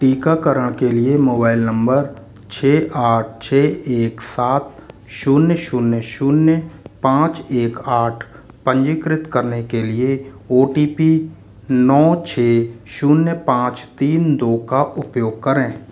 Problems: constant background noise